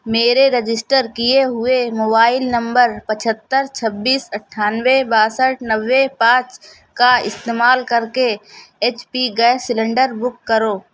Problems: none marked